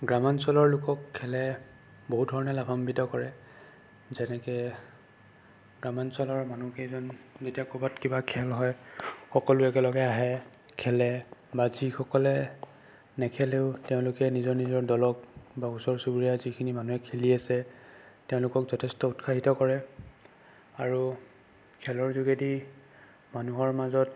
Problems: constant background noise